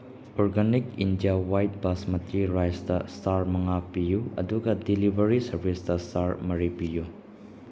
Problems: background sounds at intervals